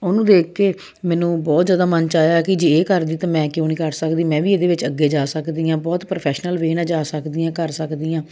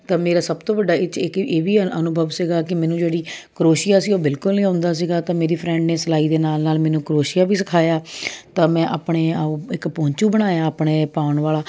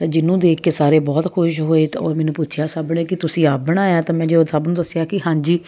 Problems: constant background noise